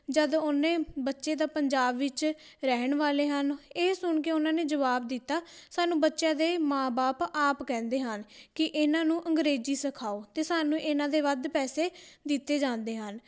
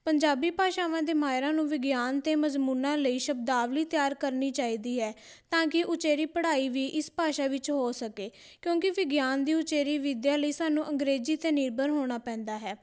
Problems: none marked